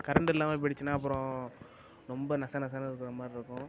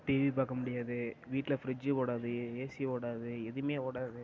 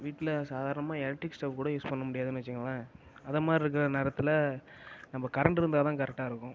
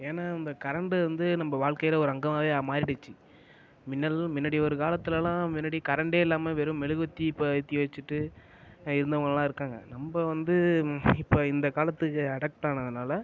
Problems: constant background noise